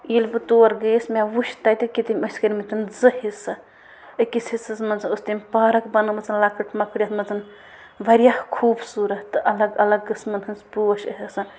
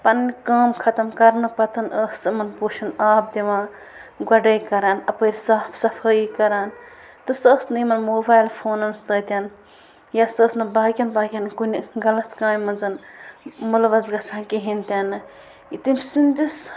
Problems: constant background noise